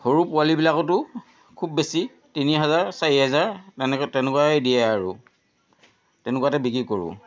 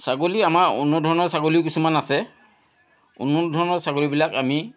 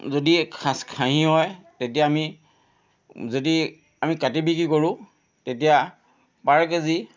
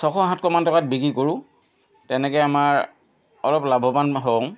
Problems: constant background noise